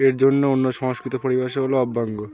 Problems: constant background noise